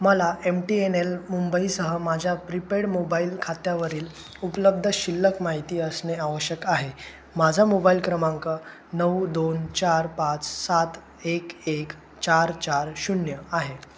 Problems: none marked